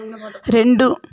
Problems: background conversations at intervals